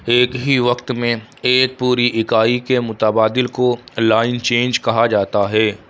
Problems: none marked